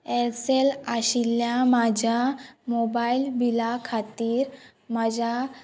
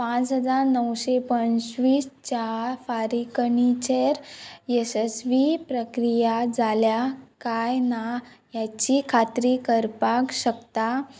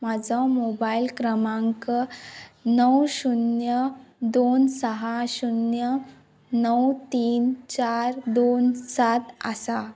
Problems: background sounds at intervals